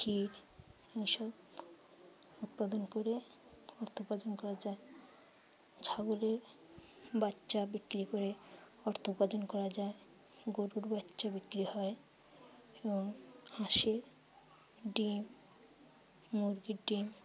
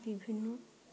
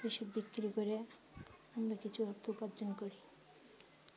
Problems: constant background noise, low volume